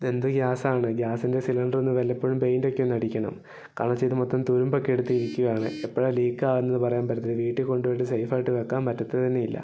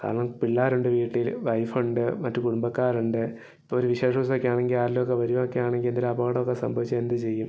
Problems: low volume